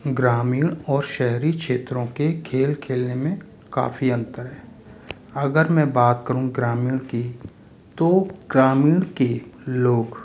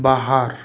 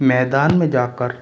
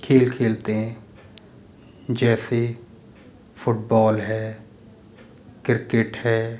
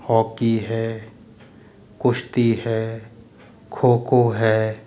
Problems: constant background noise, background conversations at intervals